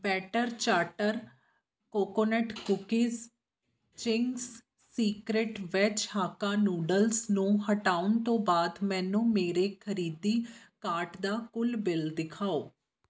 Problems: background sounds at intervals